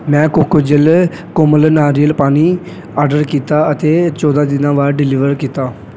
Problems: background sounds at intervals